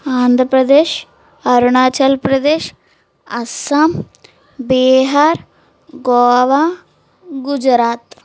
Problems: background sounds at intervals